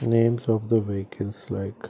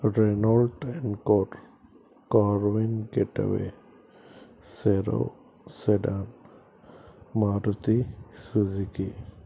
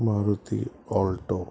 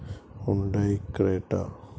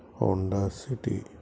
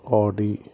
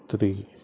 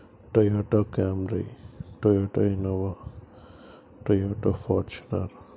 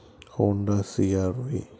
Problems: background sounds at intervals